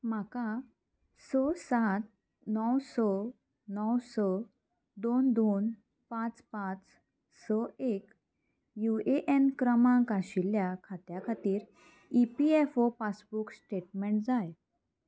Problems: constant background noise